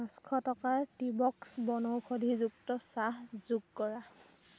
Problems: constant background noise